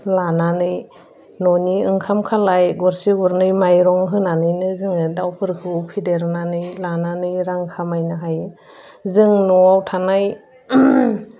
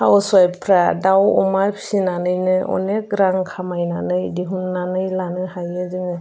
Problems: constant background noise